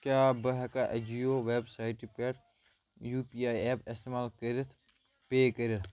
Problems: none marked